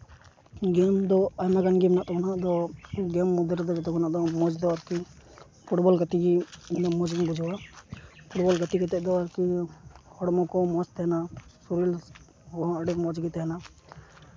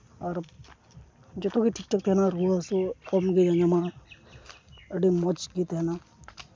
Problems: none marked